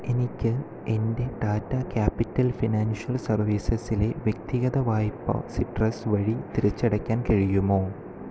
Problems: none marked